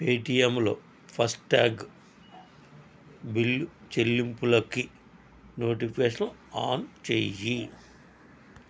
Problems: constant background noise